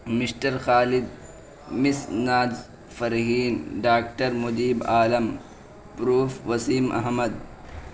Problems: constant background noise